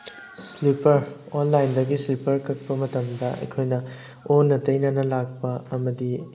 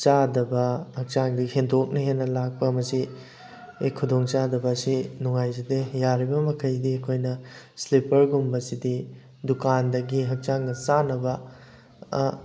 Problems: constant background noise